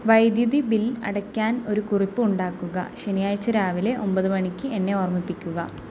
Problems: low volume